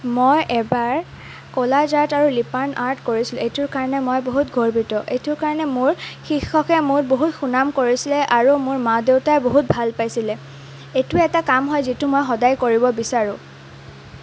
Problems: none marked